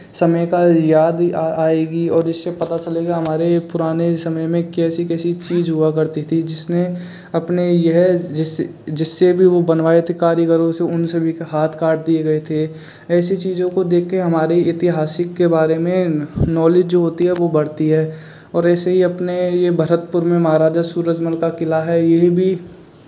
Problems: constant background noise, background conversations at intervals